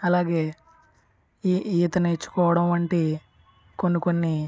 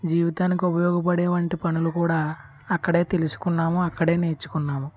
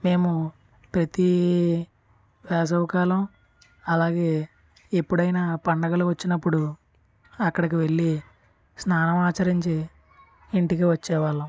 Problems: background sounds at intervals, background conversations at intervals